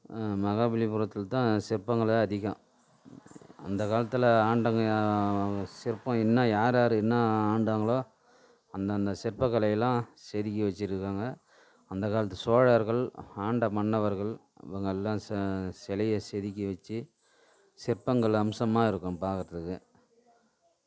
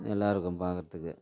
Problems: background sounds at intervals